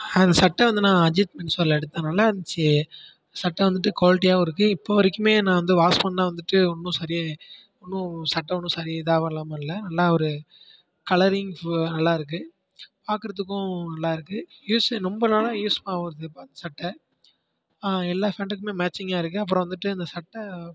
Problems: constant background noise